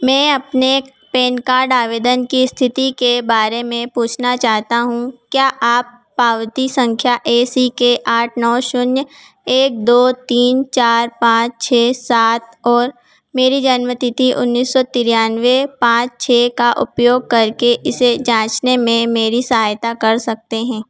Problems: none marked